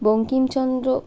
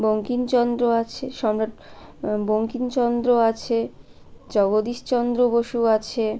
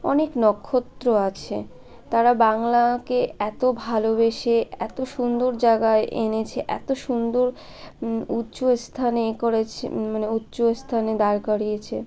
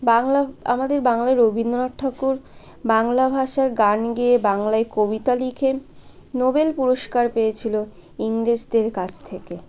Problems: constant background noise, continuous background conversations